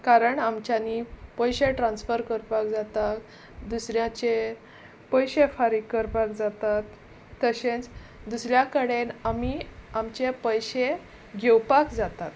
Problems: constant background noise